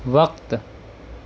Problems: none marked